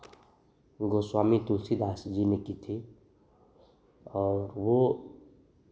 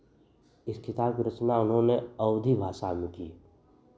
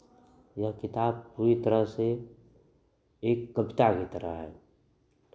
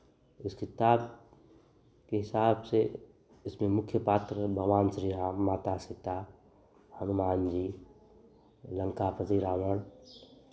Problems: constant background noise